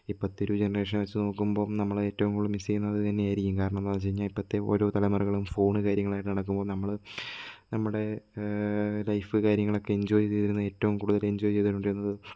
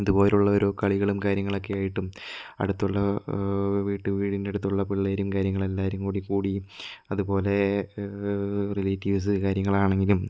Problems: none marked